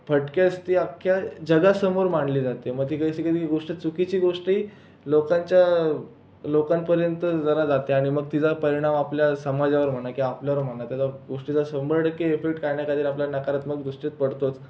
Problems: constant background noise, background conversations at intervals